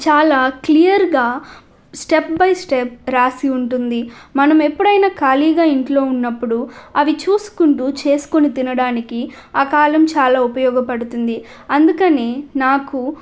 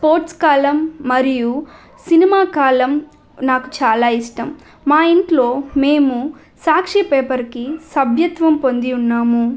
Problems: none marked